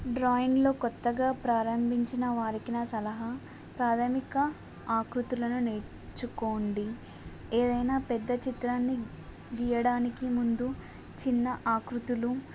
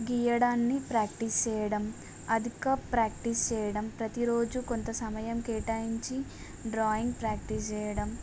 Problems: none marked